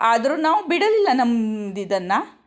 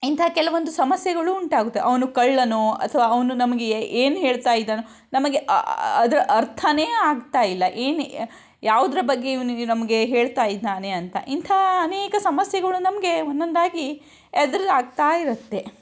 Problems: none marked